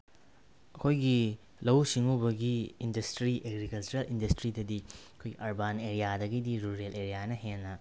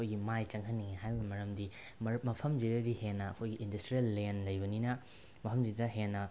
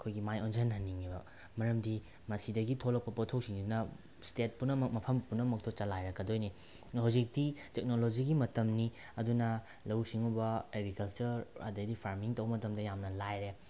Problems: none marked